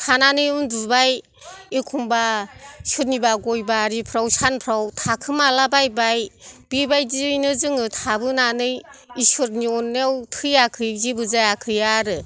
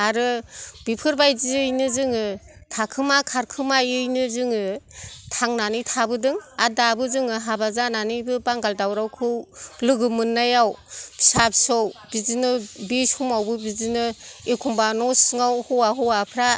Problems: background sounds at intervals